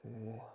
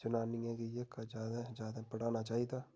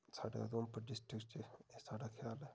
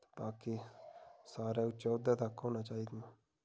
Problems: background sounds at intervals